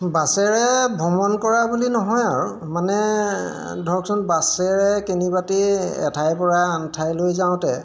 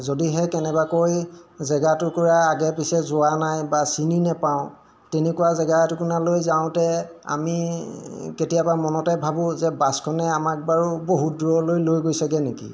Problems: background sounds at intervals